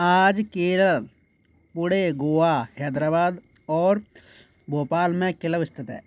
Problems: background sounds at intervals